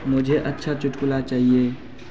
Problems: constant background noise